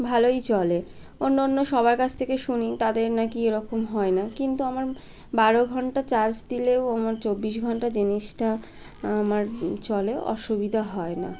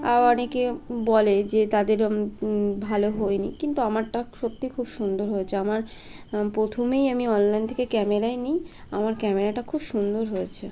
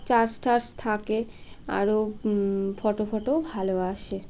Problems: constant background noise